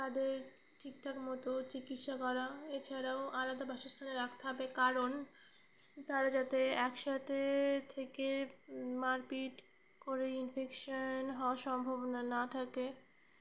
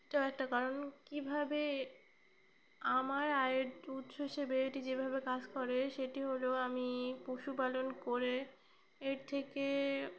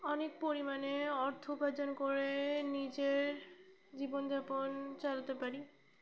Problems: background sounds at intervals